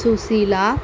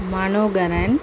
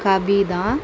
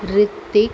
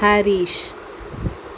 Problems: constant background noise